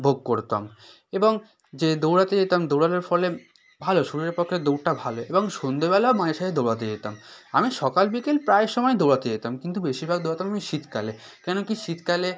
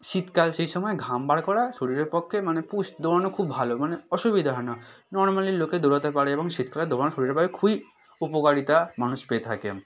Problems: background sounds at intervals